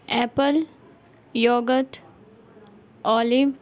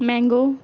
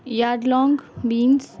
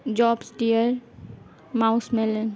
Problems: background sounds at intervals, background conversations at intervals